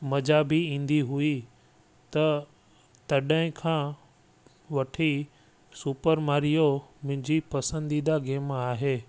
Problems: constant background noise